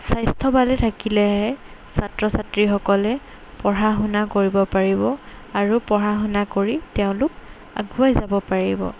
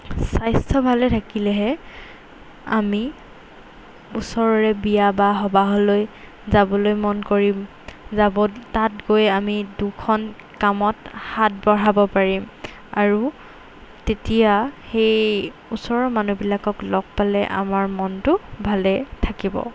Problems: background sounds at intervals